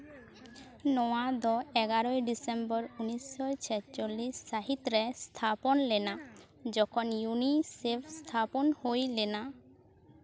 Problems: continuous background conversations